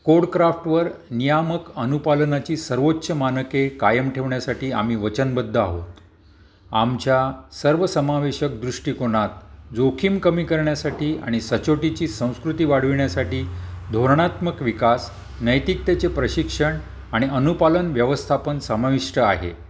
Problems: none marked